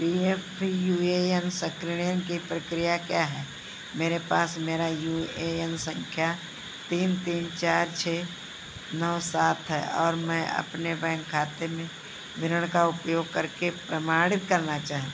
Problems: none marked